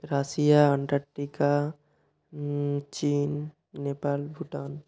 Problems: none marked